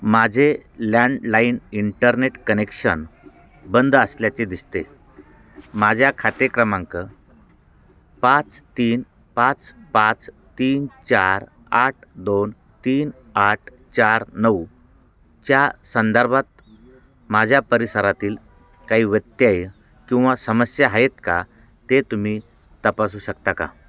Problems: constant background noise, continuous background conversations